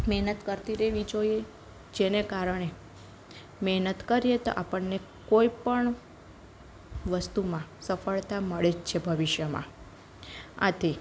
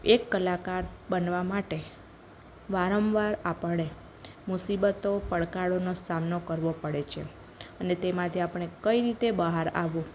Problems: none marked